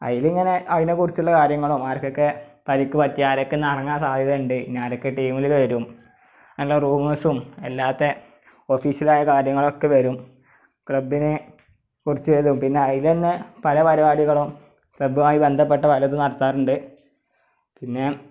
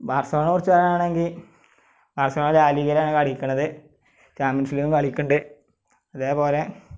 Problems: background sounds at intervals